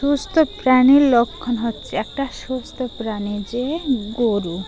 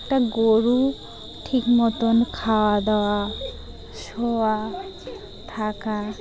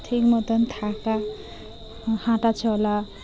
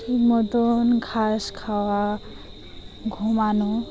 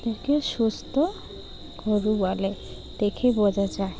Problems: constant background noise